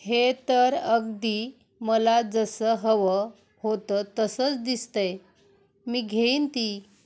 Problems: none marked